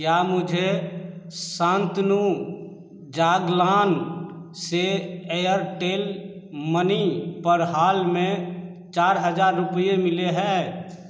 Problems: none marked